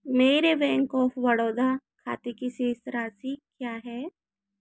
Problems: constant background noise